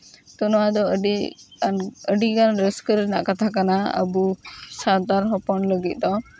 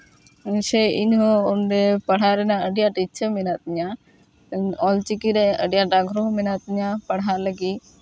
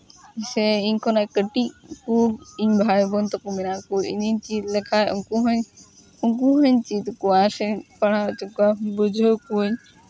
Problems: constant background noise, background conversations at intervals